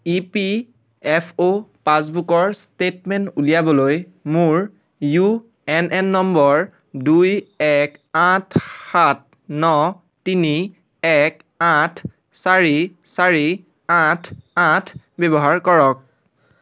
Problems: constant background noise